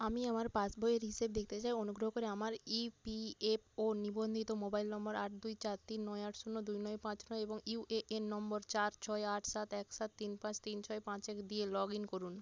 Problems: none marked